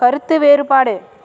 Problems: none marked